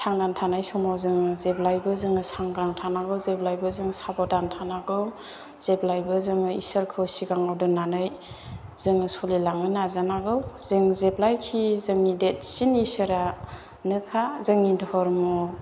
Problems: background sounds at intervals